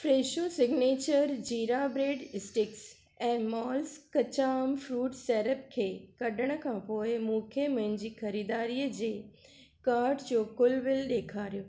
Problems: none marked